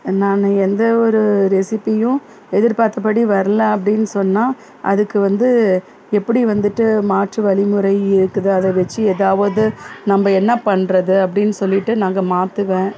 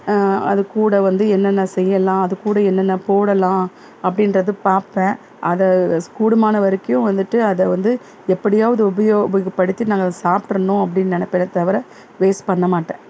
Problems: background sounds at intervals, background conversations at intervals